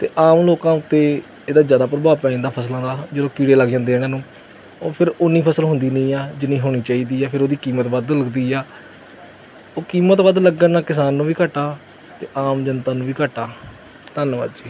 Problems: background sounds at intervals